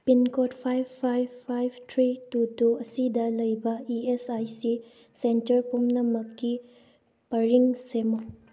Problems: background sounds at intervals